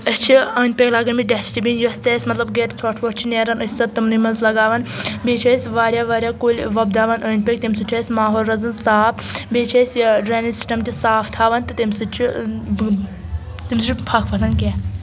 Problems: background conversations at intervals